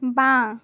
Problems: constant background noise